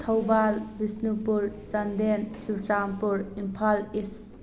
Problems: background sounds at intervals